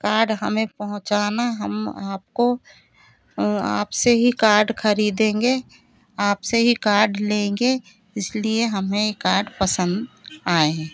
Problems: constant background noise, continuous background conversations